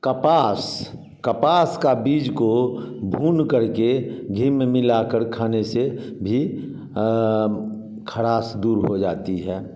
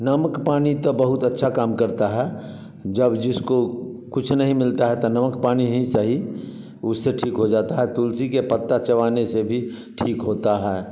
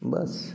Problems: background sounds at intervals